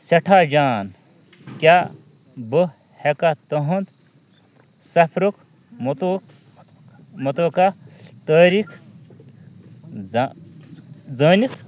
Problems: constant background noise